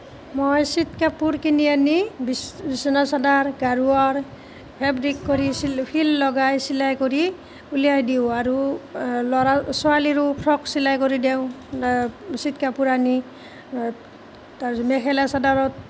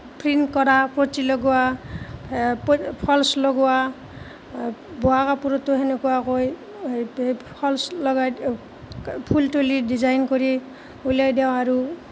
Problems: none marked